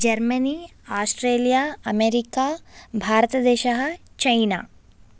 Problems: none marked